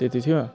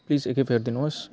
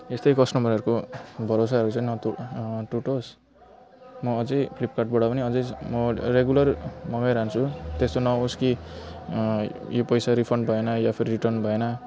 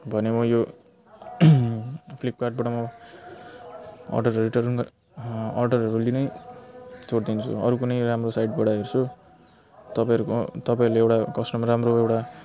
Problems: background sounds at intervals